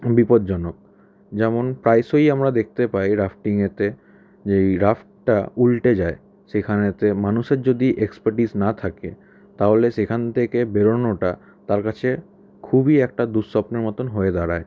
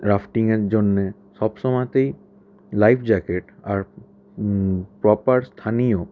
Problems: constant background noise